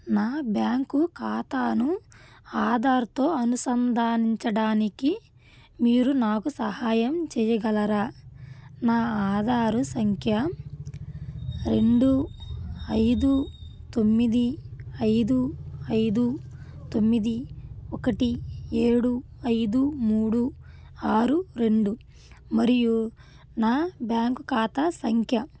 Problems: none marked